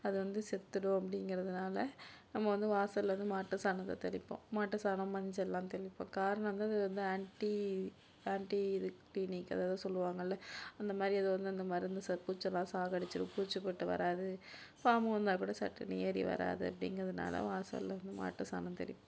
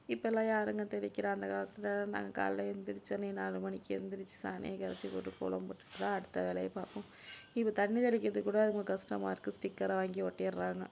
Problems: low volume